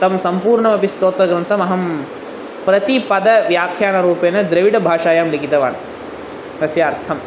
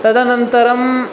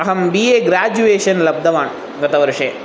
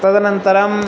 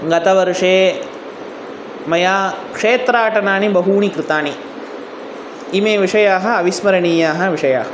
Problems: none marked